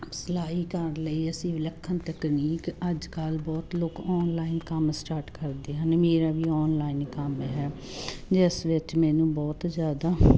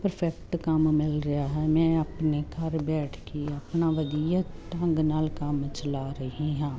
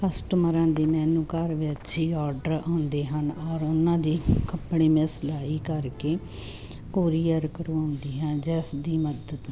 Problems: constant background noise